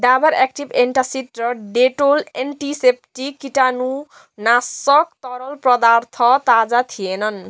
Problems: none marked